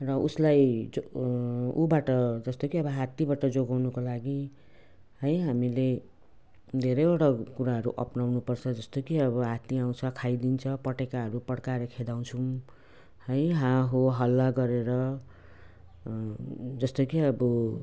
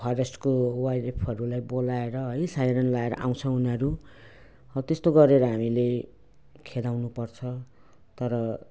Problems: none marked